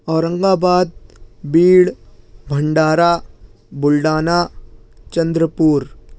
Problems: none marked